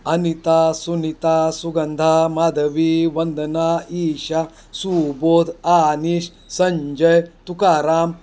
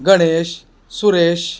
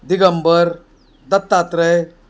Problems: background sounds at intervals